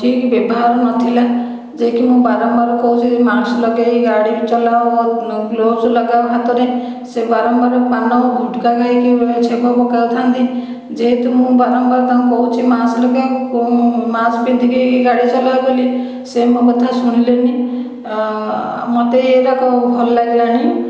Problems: none marked